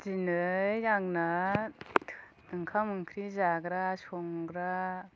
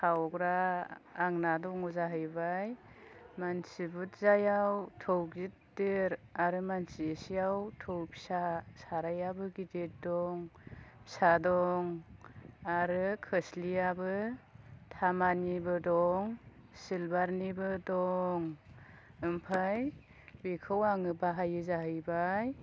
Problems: low volume